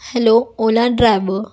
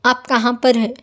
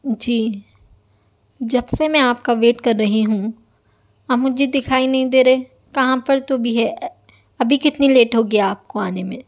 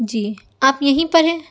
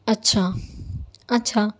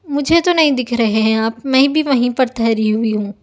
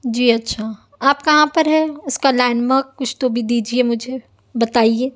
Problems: none marked